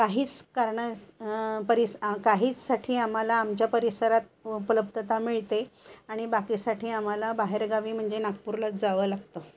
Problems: constant background noise